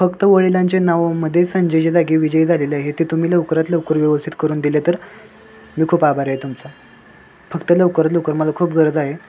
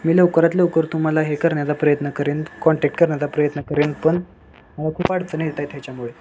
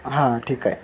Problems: constant background noise